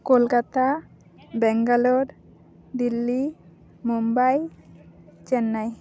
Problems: background conversations at intervals